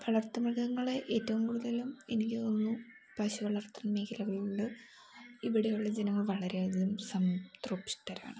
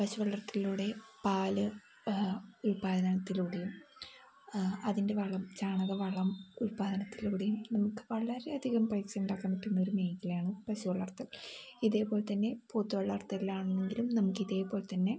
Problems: background sounds at intervals